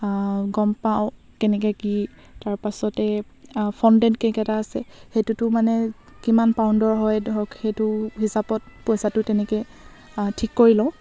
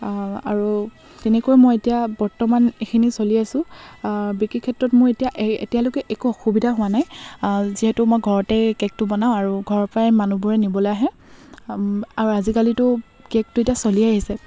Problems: none marked